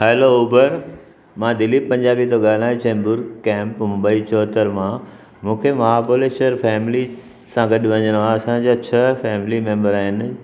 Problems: constant background noise